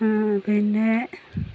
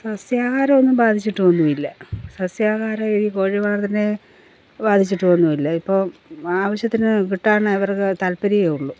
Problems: background sounds at intervals